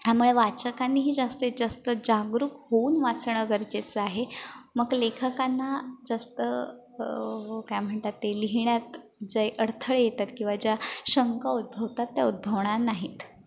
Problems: constant background noise, background conversations at intervals, echo